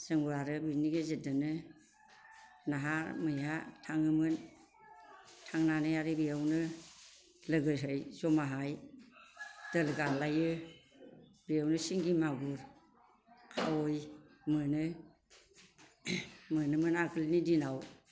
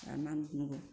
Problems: constant background noise